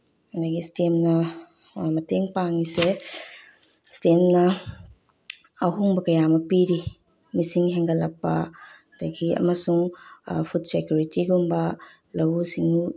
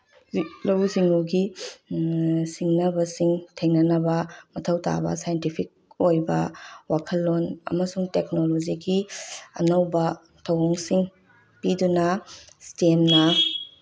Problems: none marked